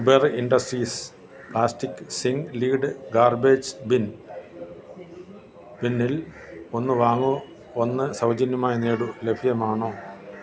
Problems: constant background noise